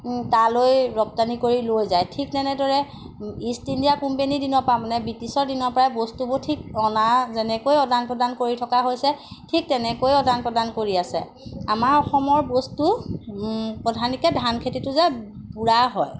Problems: none marked